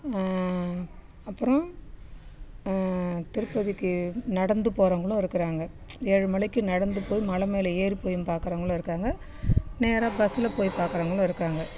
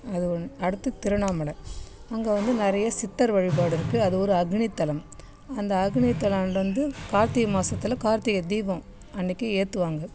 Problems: none marked